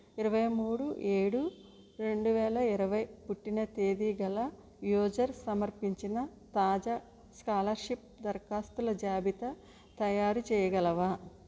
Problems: low volume